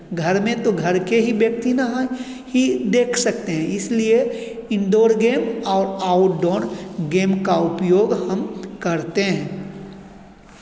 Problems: none marked